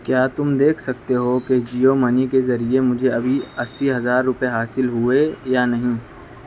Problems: constant background noise